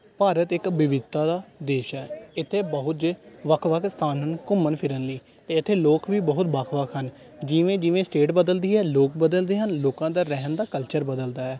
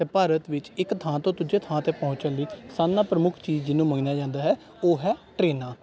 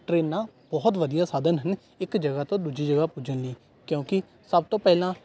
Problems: background conversations at intervals